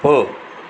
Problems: constant background noise